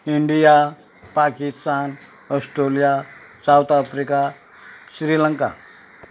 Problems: background sounds at intervals